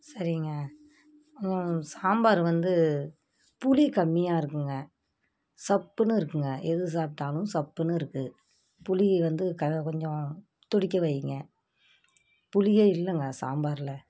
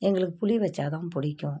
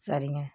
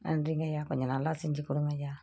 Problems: background sounds at intervals